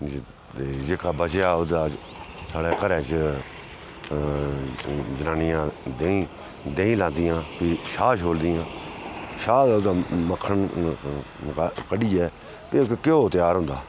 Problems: constant background noise